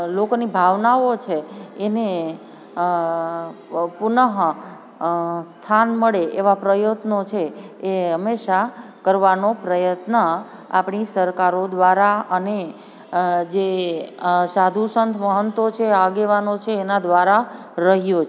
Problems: constant background noise